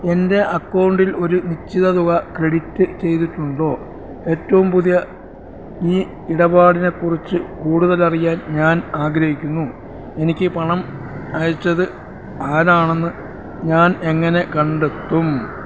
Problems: constant background noise